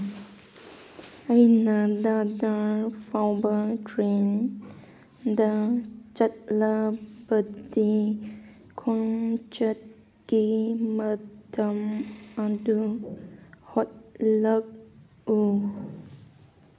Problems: none marked